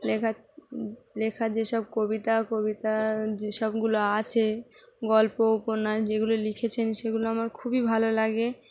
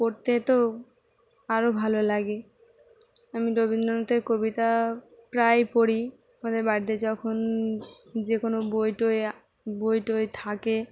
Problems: constant background noise